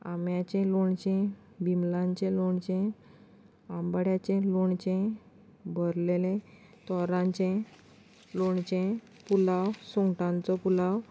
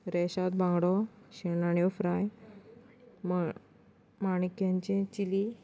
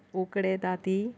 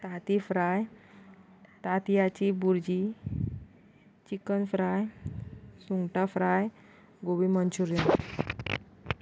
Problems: constant background noise